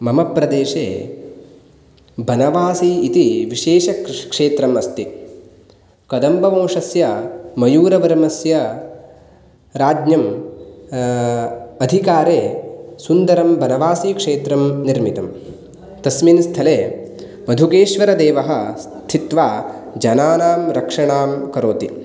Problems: none marked